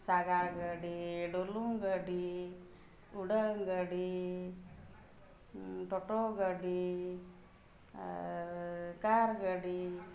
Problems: none marked